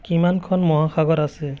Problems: constant background noise, background conversations at intervals